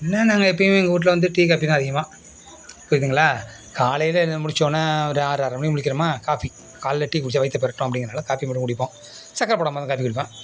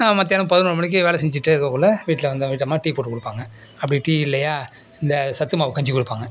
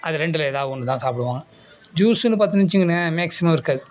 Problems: background sounds at intervals